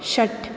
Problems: none marked